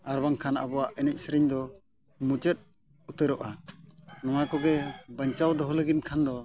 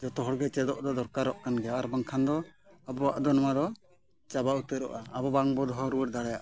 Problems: background sounds at intervals